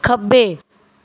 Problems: background sounds at intervals